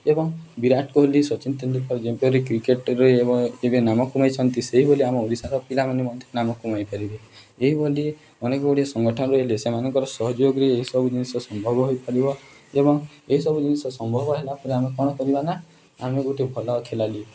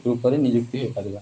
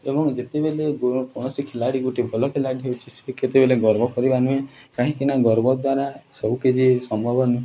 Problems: background sounds at intervals